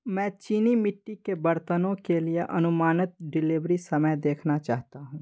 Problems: none marked